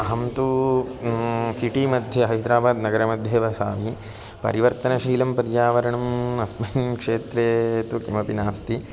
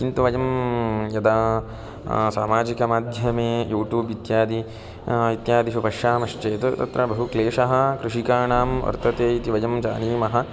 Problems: constant background noise, continuous background conversations